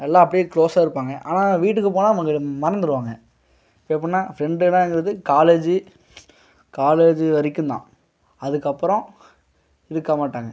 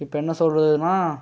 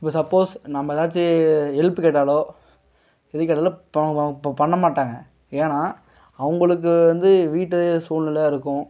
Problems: none marked